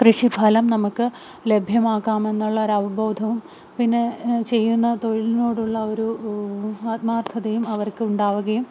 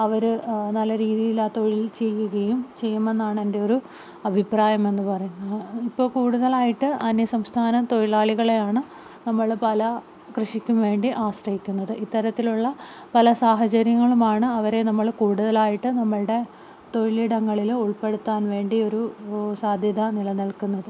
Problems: none marked